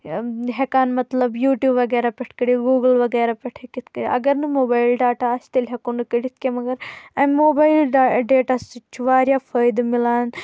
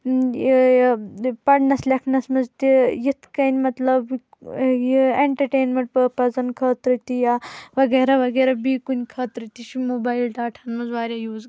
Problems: constant background noise